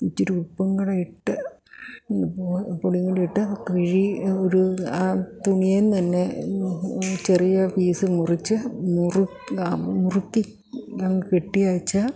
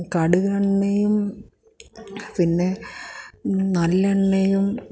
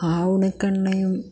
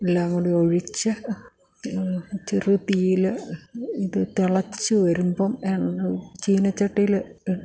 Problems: low volume